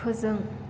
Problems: constant background noise